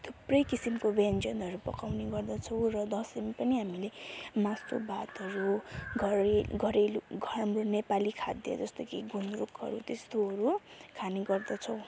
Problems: constant background noise